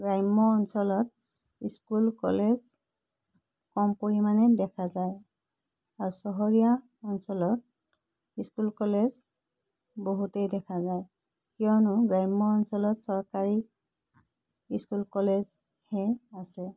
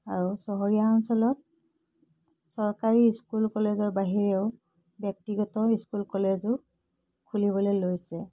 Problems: constant background noise